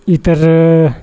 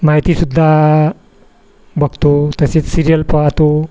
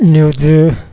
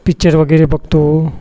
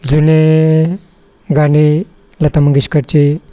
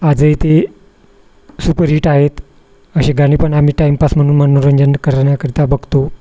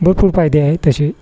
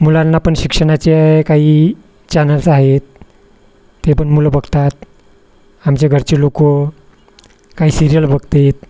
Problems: constant background noise